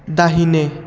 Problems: constant background noise